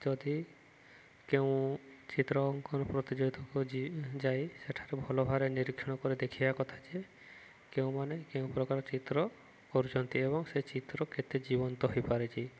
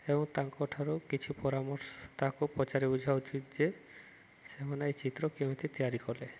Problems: none marked